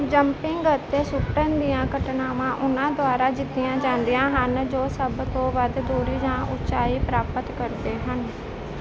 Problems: constant background noise